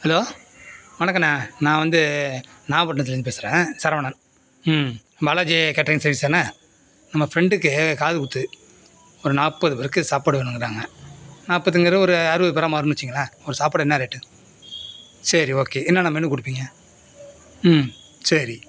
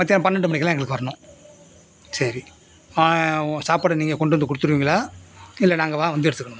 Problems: constant background noise